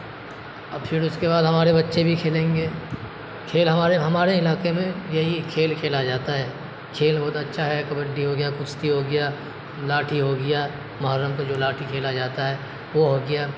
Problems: constant background noise